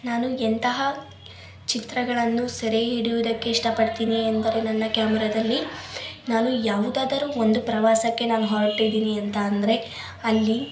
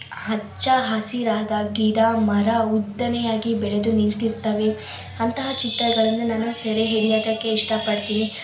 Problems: constant background noise, background conversations at intervals